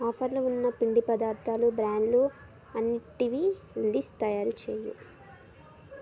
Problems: background conversations at intervals